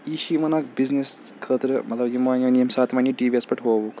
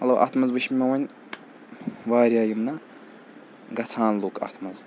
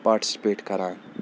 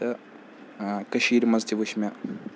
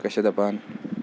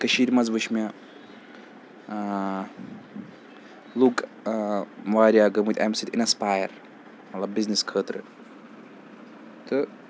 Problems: none marked